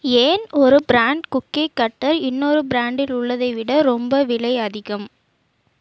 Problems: none marked